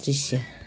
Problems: background sounds at intervals